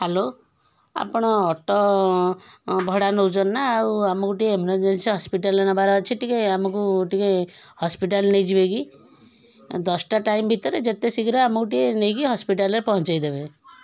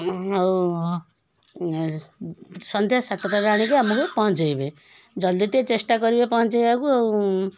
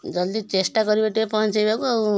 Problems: constant background noise